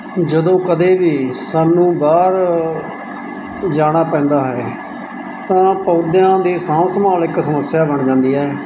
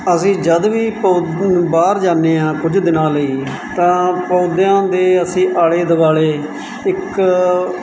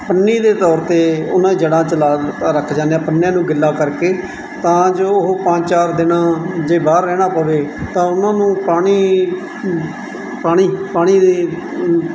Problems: none marked